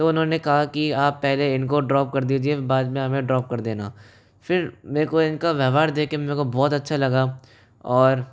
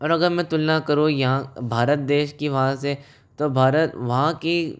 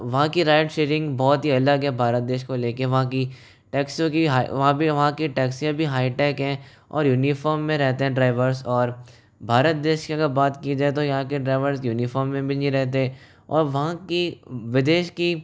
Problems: none marked